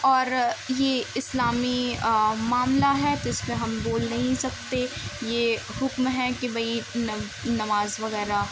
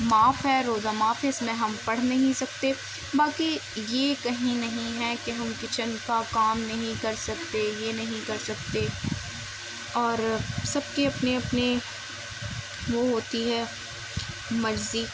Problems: constant background noise